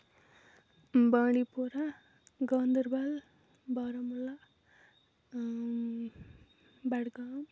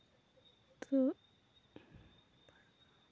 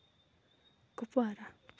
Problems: low volume